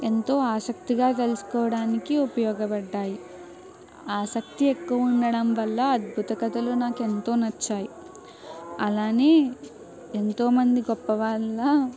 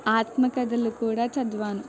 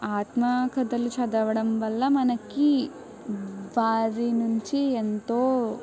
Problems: background sounds at intervals